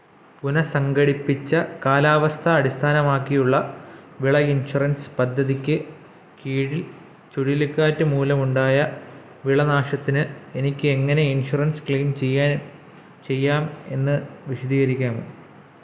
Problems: background sounds at intervals